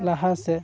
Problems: constant background noise